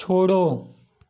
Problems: none marked